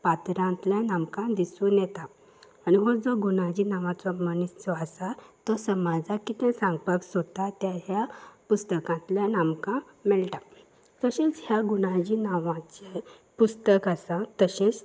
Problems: background sounds at intervals